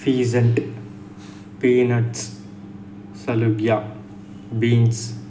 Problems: none marked